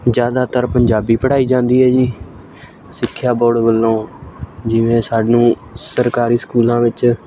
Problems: constant background noise